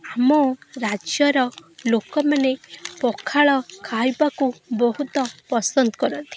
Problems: constant background noise, continuous background conversations